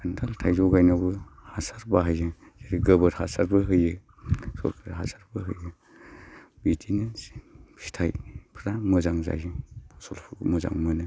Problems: constant background noise